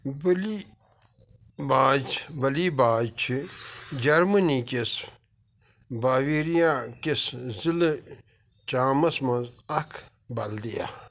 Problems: none marked